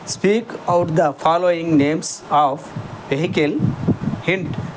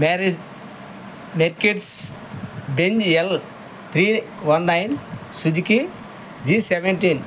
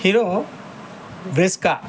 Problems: none marked